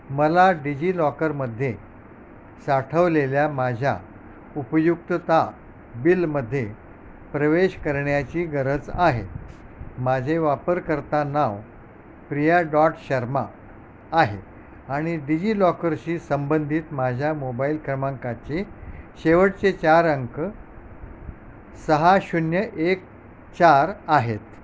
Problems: constant background noise